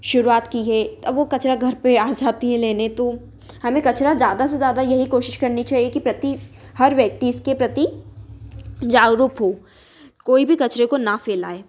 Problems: none marked